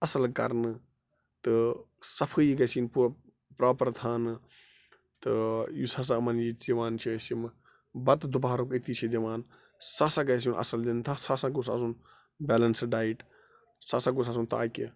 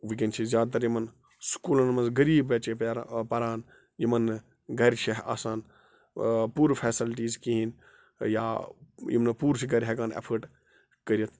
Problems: constant background noise